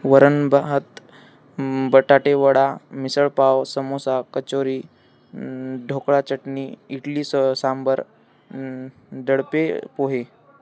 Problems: constant background noise, background conversations at intervals